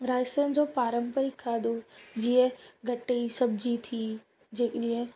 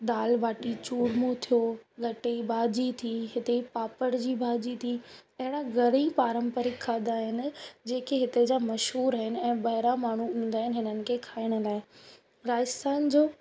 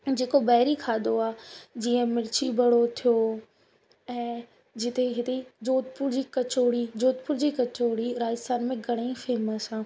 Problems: constant background noise